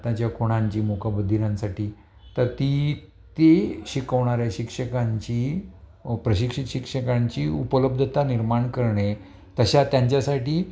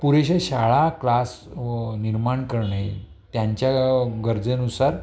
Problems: none marked